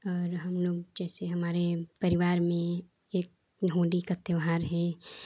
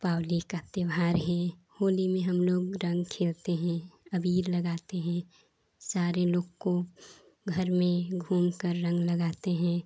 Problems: constant background noise